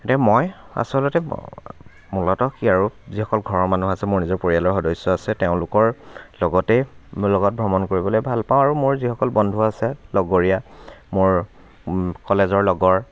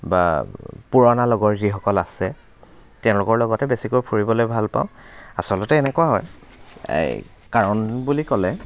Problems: none marked